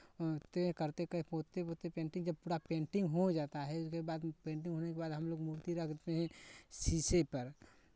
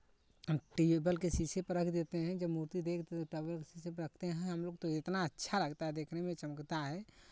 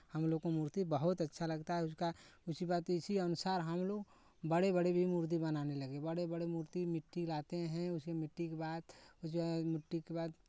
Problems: none marked